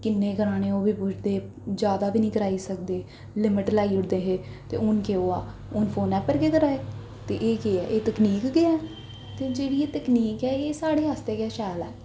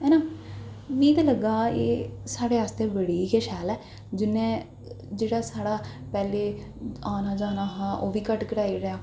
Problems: echo